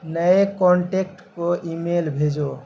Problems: constant background noise